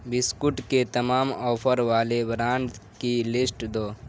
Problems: constant background noise